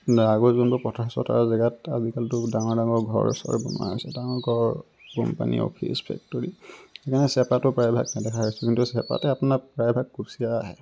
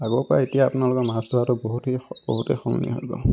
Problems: constant background noise